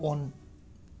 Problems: constant background noise, low volume